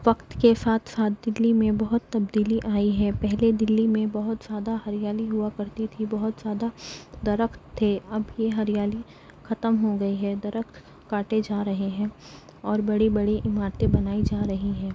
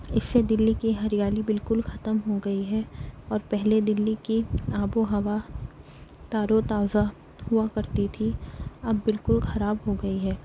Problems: none marked